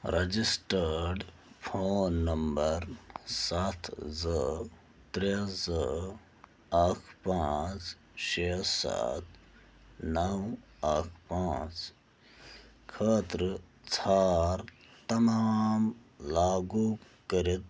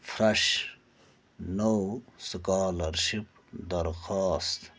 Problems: none marked